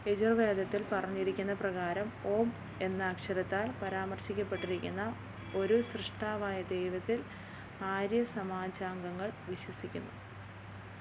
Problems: low volume